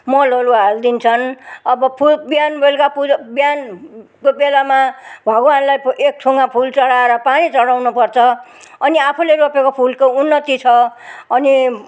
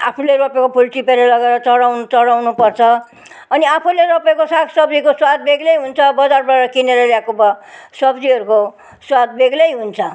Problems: none marked